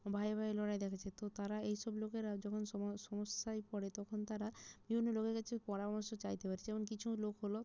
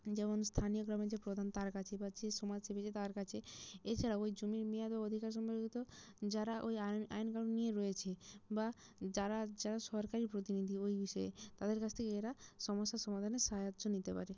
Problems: low volume